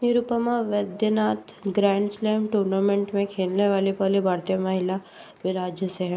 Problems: constant background noise